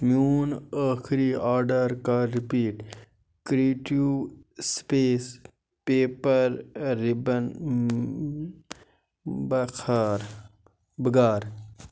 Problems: constant background noise